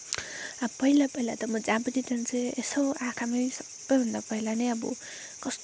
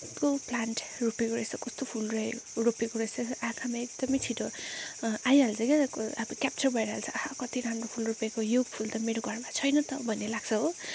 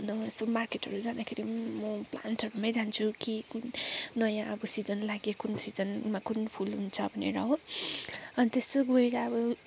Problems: none marked